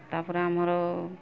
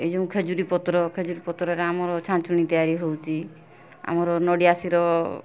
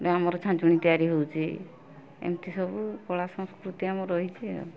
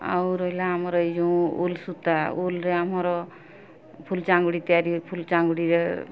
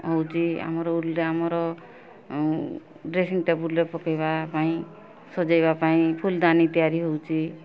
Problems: constant background noise